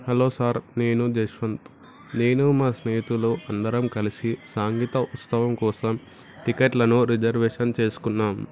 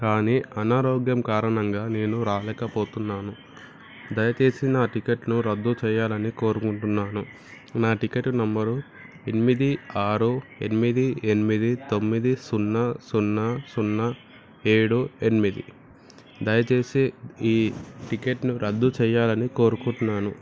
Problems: background sounds at intervals, background conversations at intervals